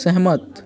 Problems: constant background noise